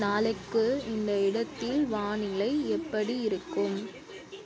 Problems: background sounds at intervals